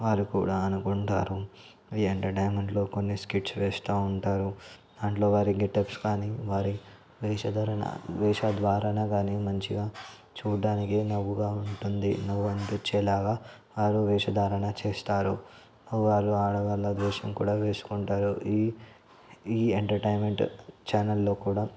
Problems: constant background noise, background conversations at intervals